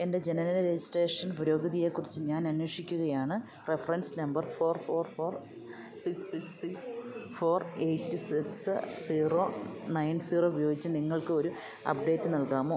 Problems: none marked